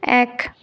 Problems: constant background noise